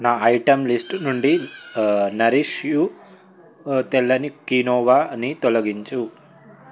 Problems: none marked